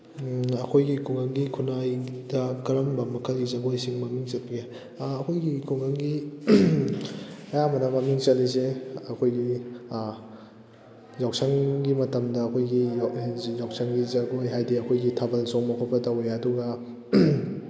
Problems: background conversations at intervals